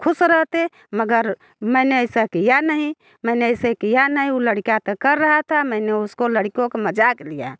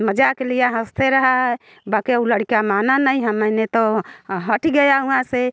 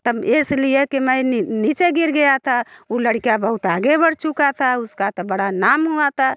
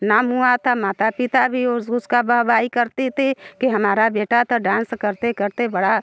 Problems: background sounds at intervals